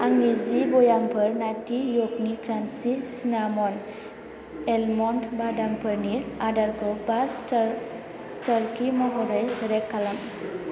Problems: low volume